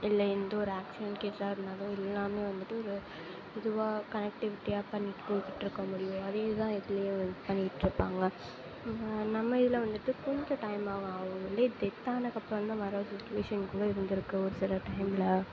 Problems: background sounds at intervals, low volume